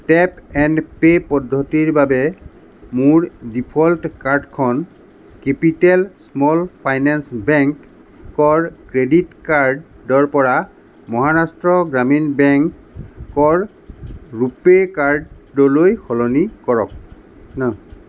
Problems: background conversations at intervals